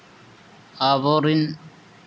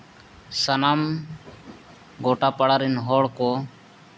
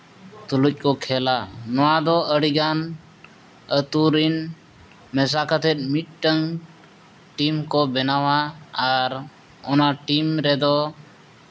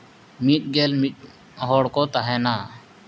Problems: background sounds at intervals